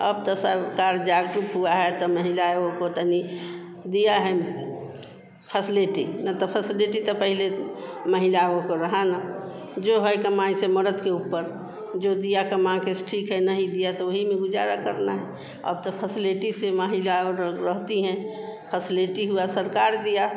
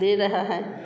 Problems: none marked